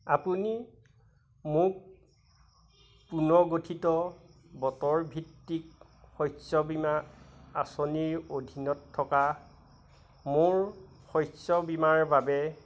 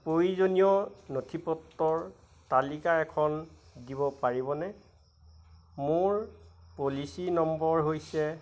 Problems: none marked